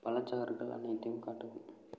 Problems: low volume